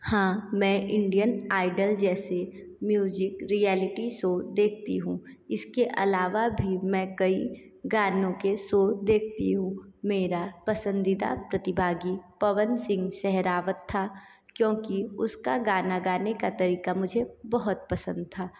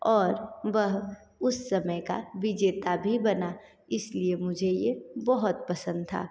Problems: echo